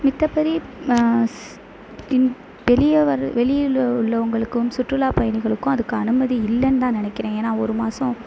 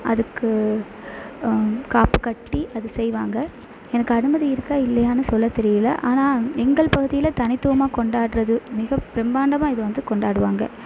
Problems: constant background noise